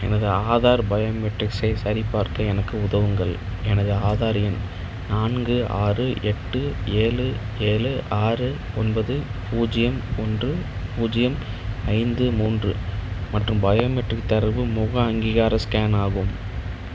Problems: none marked